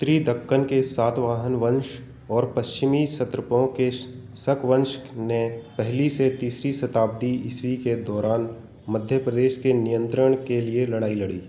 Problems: constant background noise